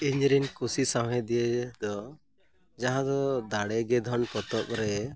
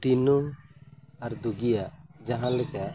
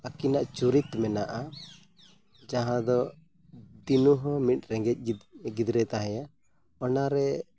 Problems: background sounds at intervals